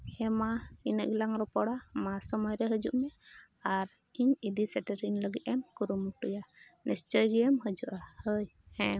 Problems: none marked